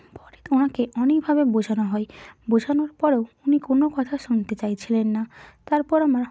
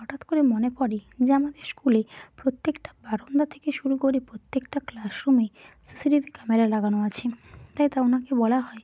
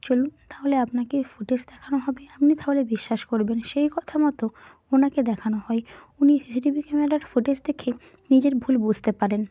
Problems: none marked